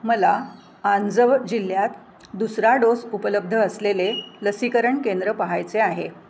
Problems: none marked